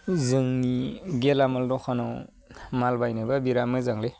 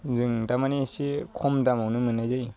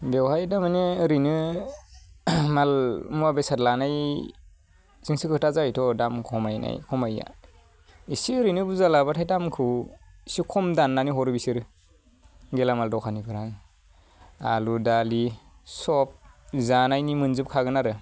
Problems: none marked